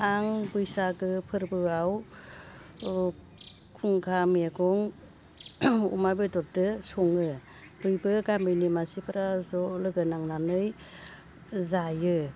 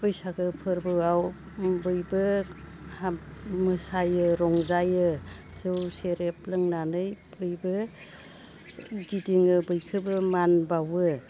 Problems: low volume